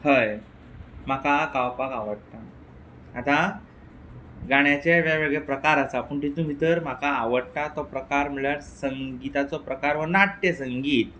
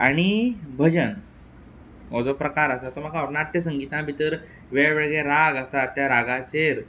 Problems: background sounds at intervals